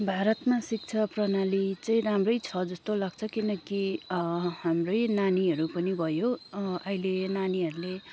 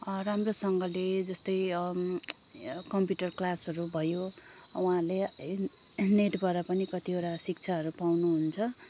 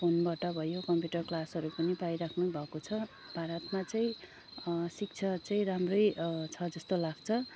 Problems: none marked